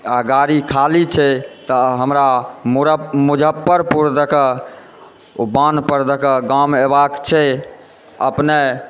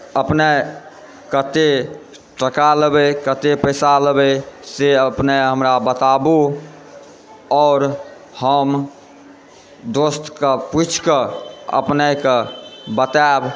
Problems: background sounds at intervals, background conversations at intervals